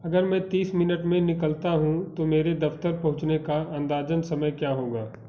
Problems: background sounds at intervals